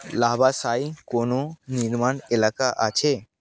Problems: constant background noise